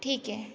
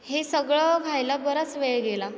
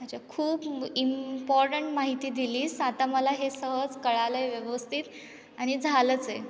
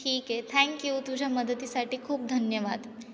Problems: background sounds at intervals, echo